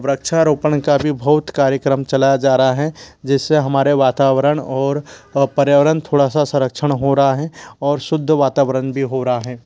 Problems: background sounds at intervals